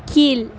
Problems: none marked